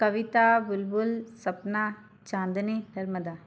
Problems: constant background noise